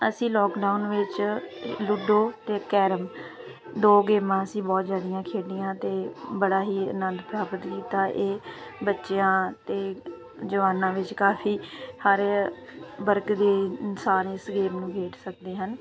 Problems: constant background noise